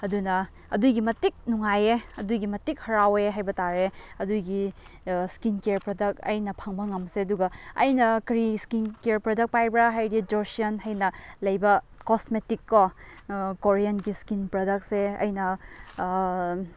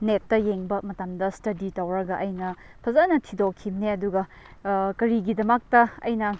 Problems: constant background noise